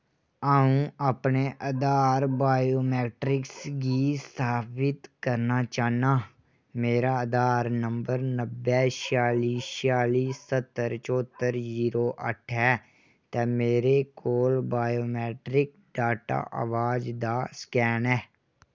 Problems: none marked